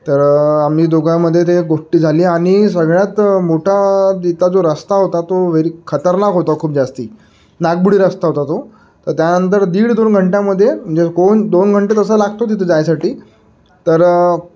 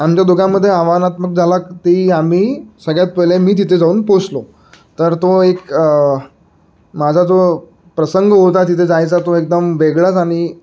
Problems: background sounds at intervals